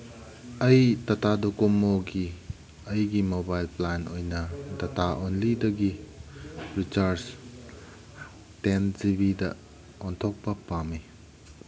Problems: background sounds at intervals